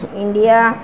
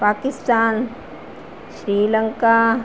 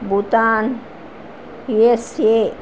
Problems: constant background noise